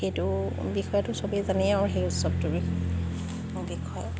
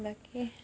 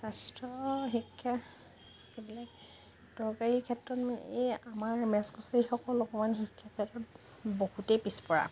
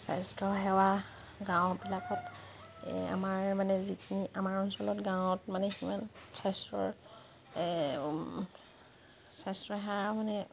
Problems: background sounds at intervals